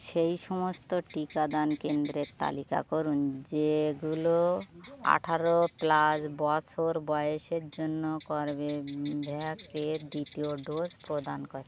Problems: constant background noise